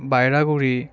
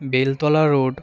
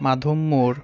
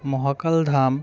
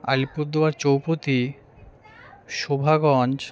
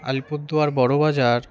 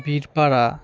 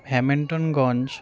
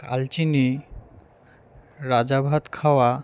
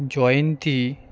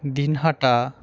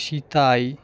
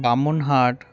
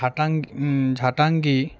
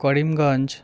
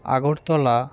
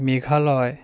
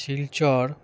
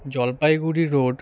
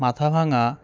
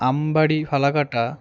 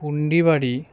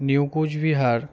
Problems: continuous background conversations